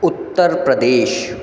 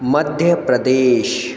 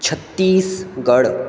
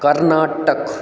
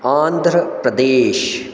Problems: background sounds at intervals